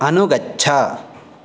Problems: constant background noise